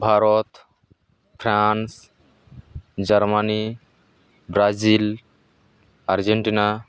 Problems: none marked